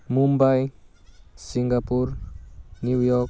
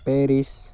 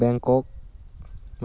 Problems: constant background noise